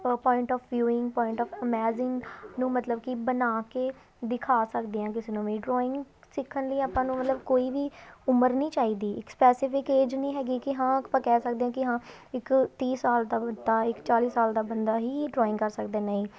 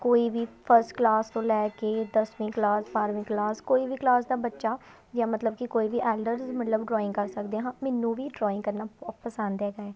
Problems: background sounds at intervals, continuous background conversations